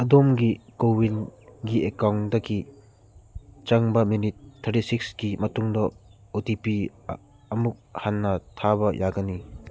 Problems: constant background noise